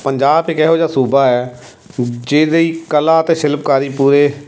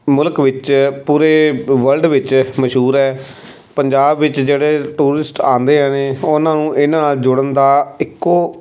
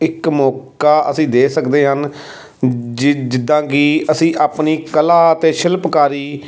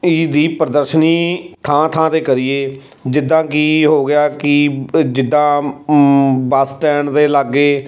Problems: background sounds at intervals